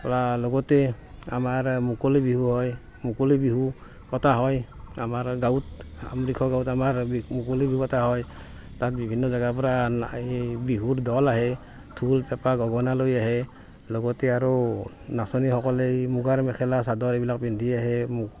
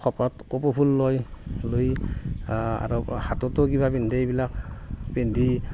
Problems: constant background noise, background conversations at intervals